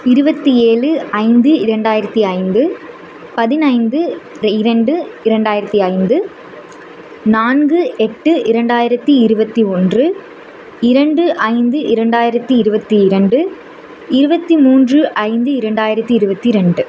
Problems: none marked